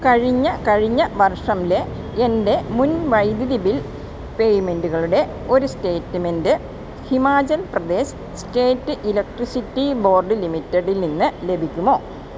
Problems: constant background noise